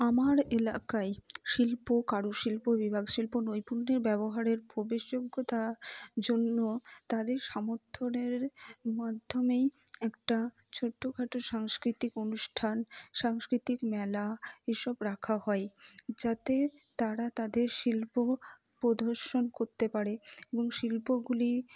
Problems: low volume